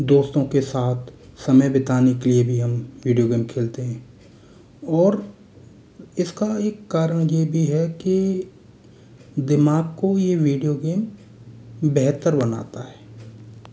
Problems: constant background noise